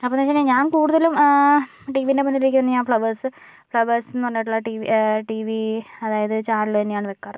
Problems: none marked